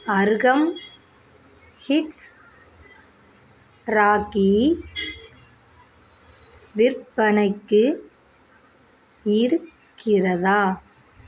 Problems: none marked